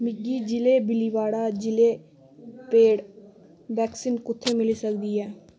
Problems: constant background noise